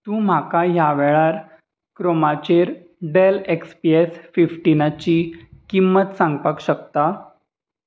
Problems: constant background noise